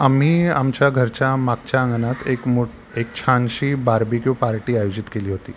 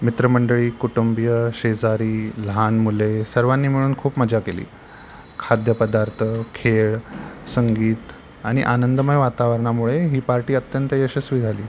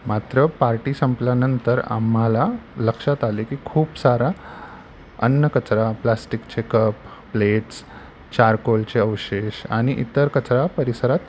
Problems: none marked